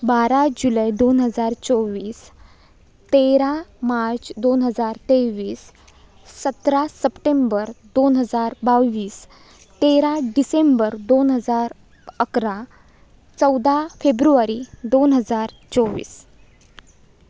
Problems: background sounds at intervals